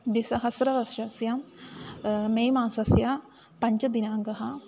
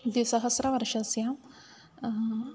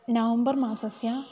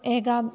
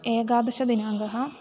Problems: constant background noise, background conversations at intervals